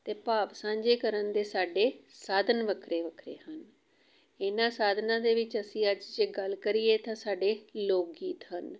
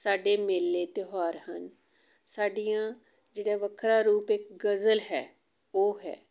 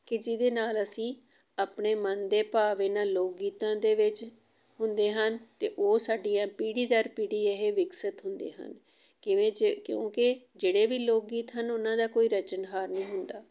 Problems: background sounds at intervals